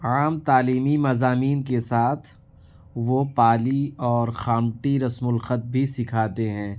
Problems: none marked